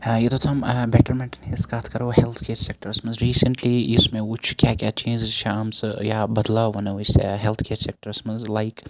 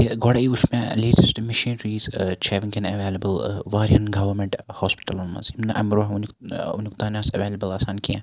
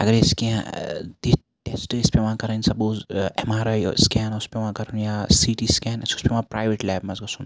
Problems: constant background noise